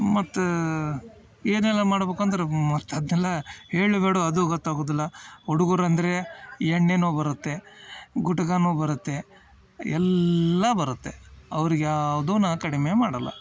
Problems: none marked